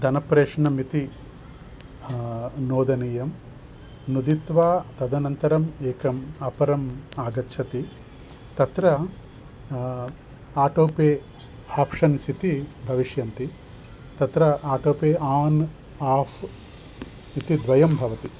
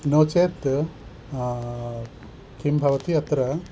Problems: none marked